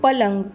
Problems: constant background noise